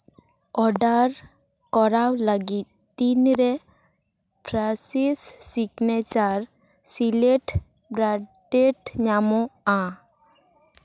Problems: none marked